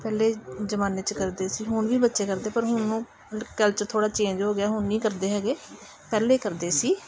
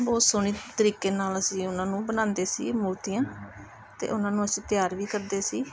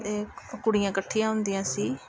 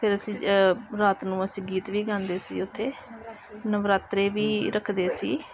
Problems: constant background noise, background conversations at intervals